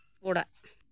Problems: none marked